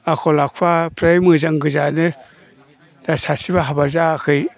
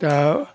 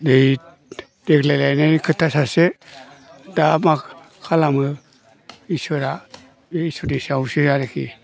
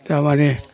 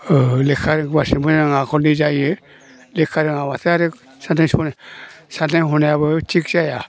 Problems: low volume